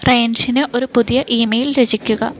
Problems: background sounds at intervals